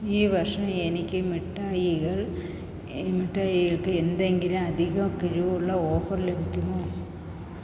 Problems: echo